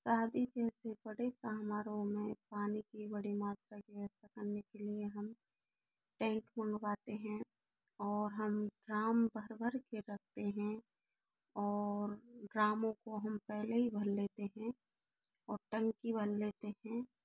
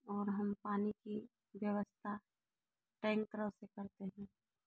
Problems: low volume